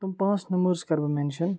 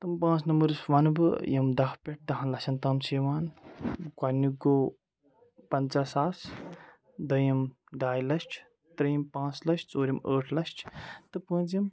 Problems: background sounds at intervals, background conversations at intervals